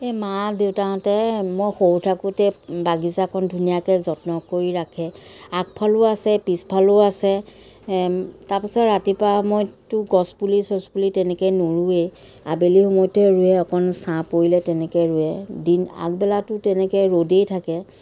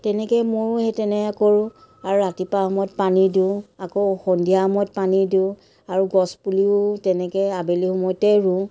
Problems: none marked